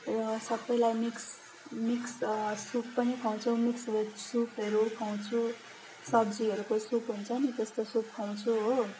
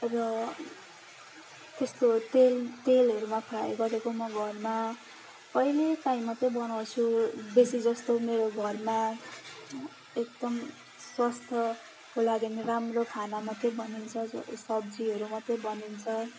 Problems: constant background noise